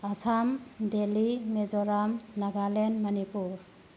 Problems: low volume